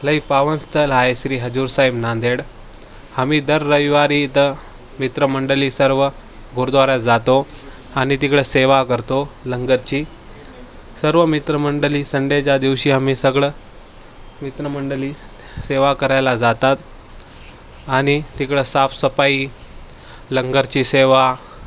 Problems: constant background noise, background conversations at intervals